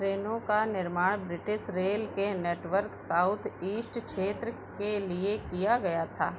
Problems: none marked